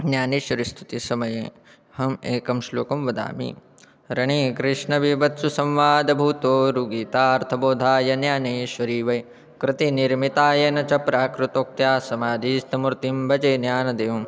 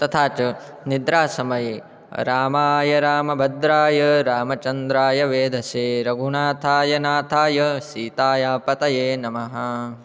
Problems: constant background noise, background conversations at intervals